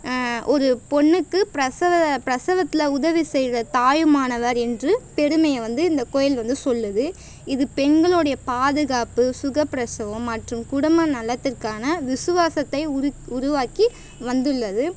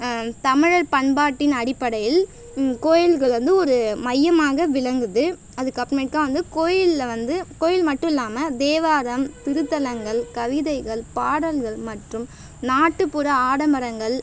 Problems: background sounds at intervals